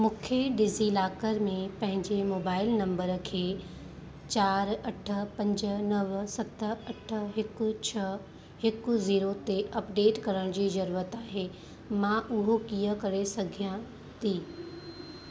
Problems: constant background noise, echo